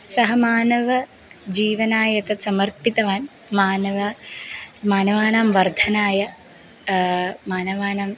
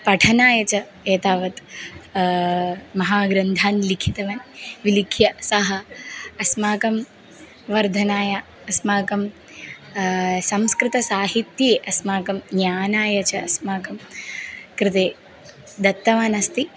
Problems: background sounds at intervals